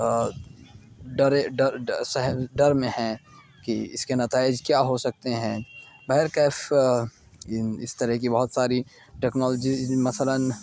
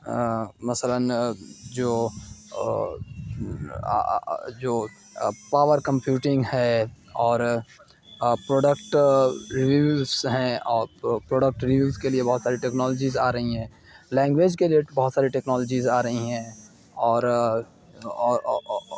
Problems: background sounds at intervals